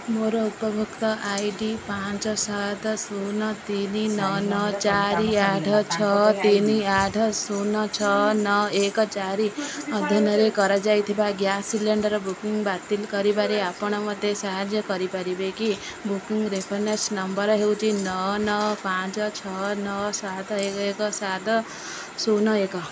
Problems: constant background noise, background conversations at intervals